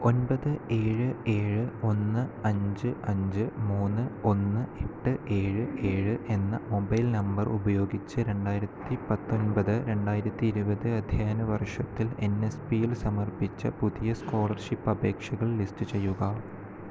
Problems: none marked